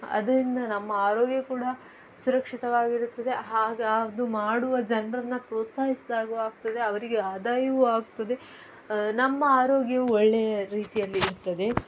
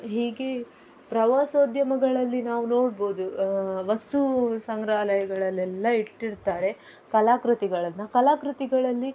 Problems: background sounds at intervals